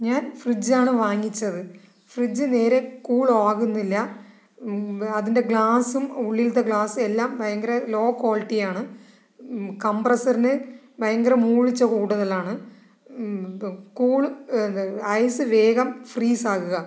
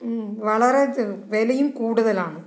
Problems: background conversations at intervals